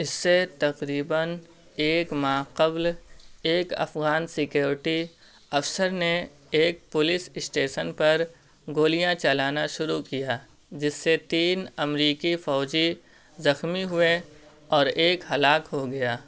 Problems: constant background noise